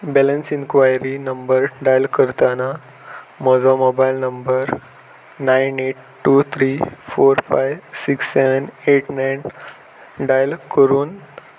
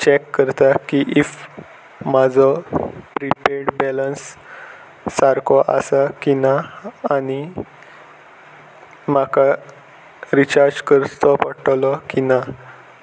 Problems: none marked